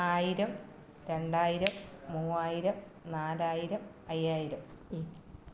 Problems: none marked